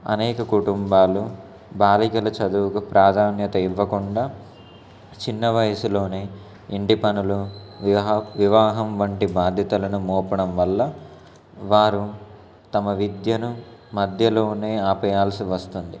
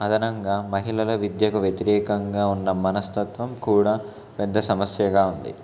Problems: constant background noise, background conversations at intervals